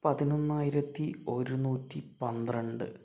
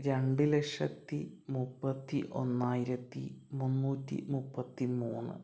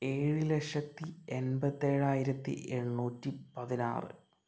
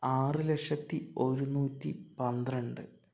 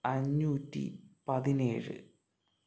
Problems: none marked